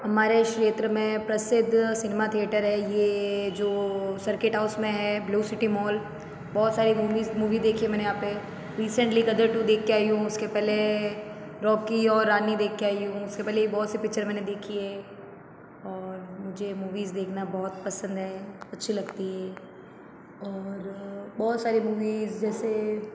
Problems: background sounds at intervals